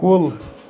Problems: constant background noise